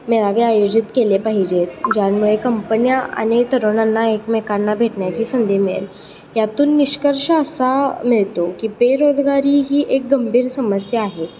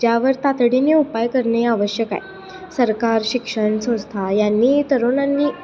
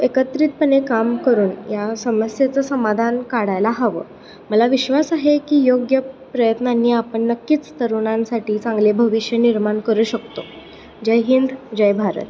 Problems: constant background noise